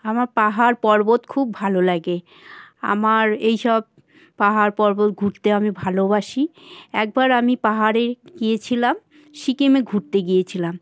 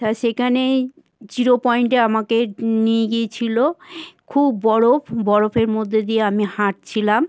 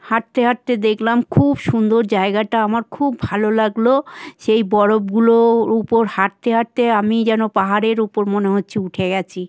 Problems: constant background noise